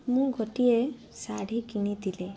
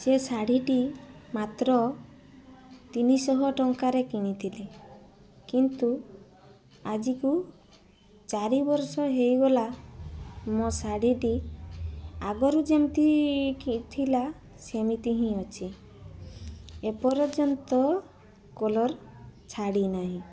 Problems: constant background noise